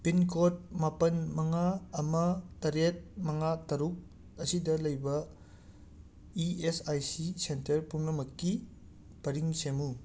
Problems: none marked